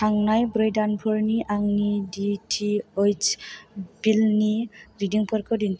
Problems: low volume